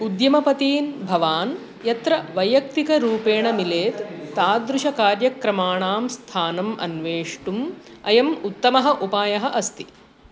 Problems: constant background noise